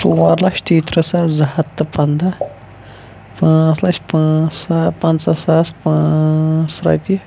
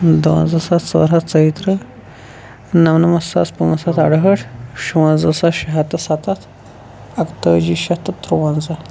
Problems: constant background noise